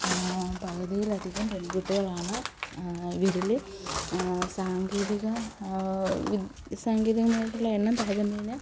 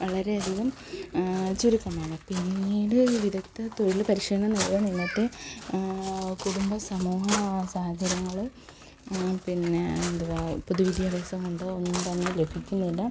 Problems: background conversations at intervals, low volume